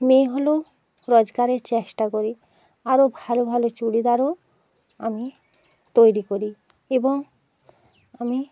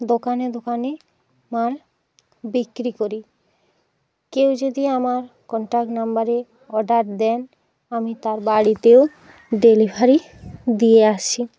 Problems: constant background noise